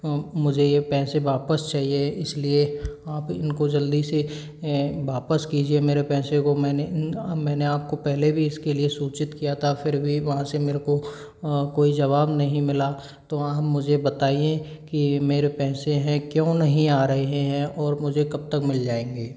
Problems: low volume